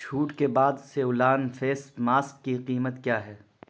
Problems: constant background noise